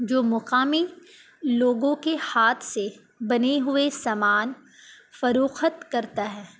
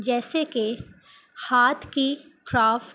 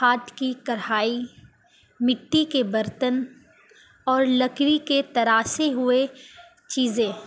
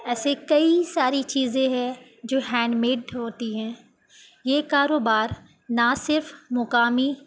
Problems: none marked